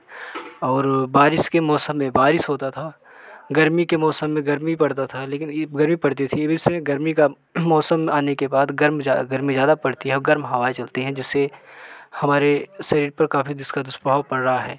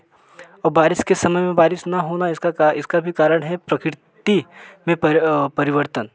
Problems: none marked